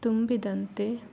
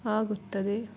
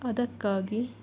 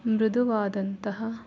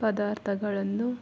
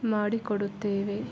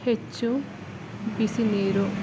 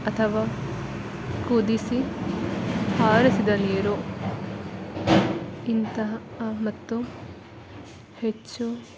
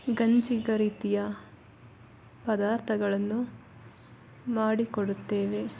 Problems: background sounds at intervals